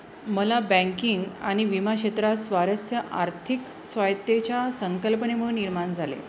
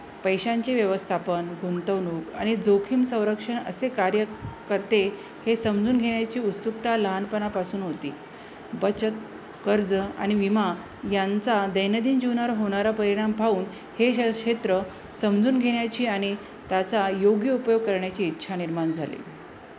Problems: constant background noise